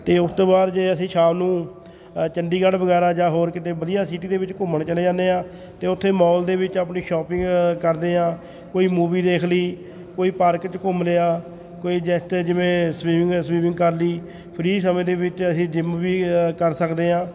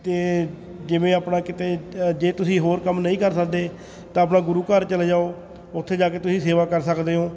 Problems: continuous background conversations